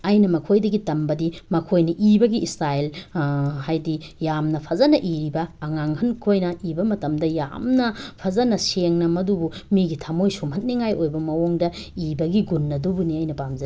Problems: none marked